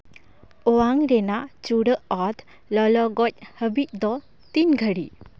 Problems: background sounds at intervals